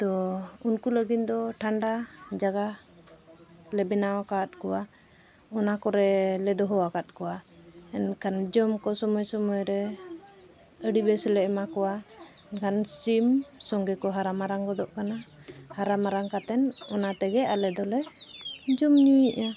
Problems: constant background noise